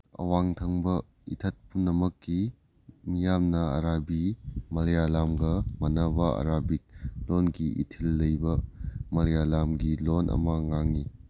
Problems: none marked